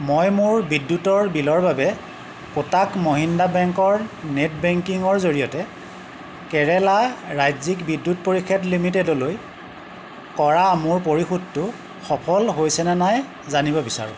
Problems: none marked